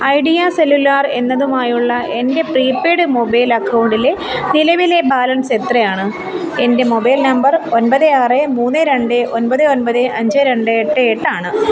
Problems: continuous background conversations